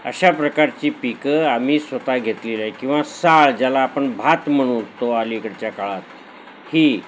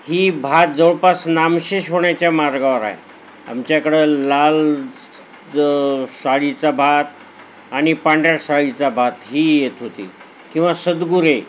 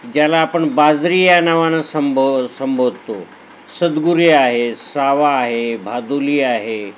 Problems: none marked